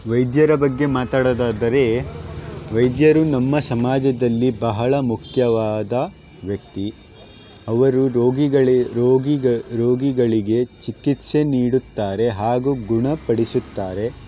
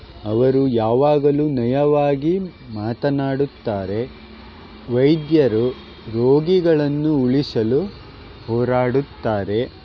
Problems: background sounds at intervals